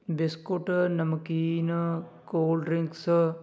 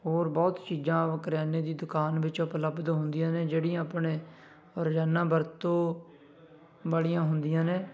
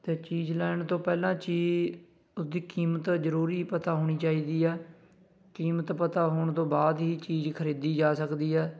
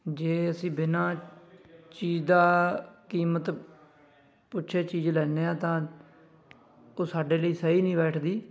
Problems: none marked